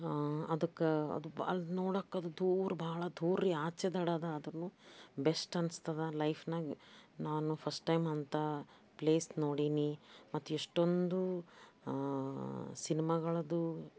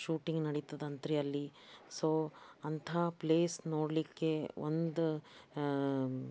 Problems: background sounds at intervals